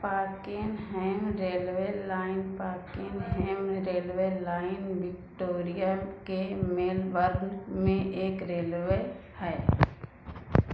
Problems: constant background noise